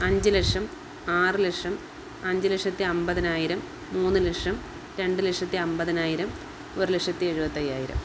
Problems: none marked